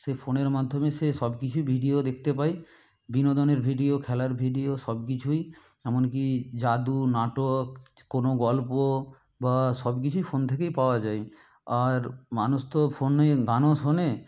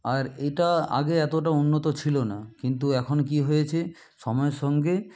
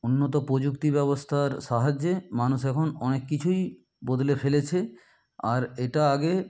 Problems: background sounds at intervals